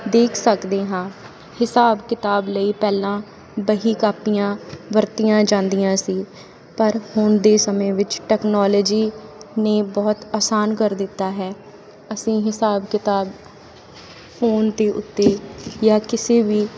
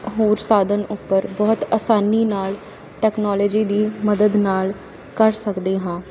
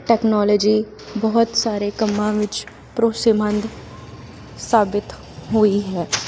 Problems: constant background noise